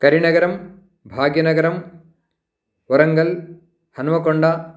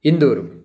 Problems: none marked